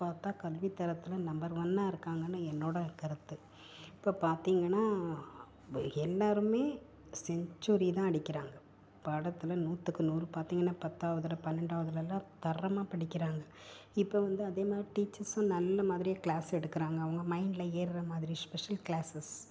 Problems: background sounds at intervals, low volume